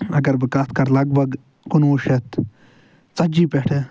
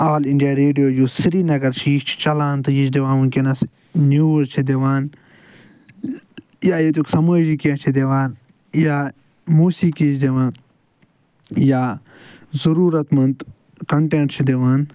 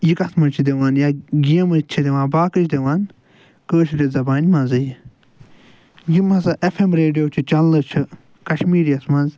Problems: none marked